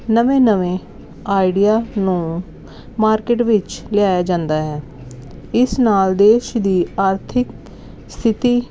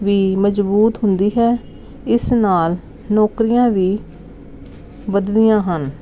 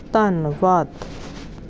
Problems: none marked